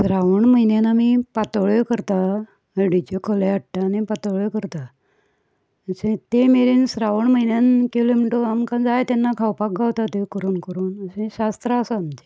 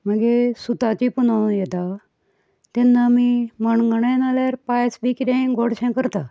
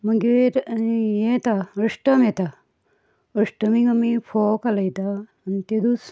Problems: background sounds at intervals, background conversations at intervals